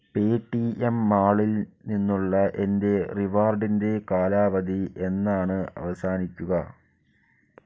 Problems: low volume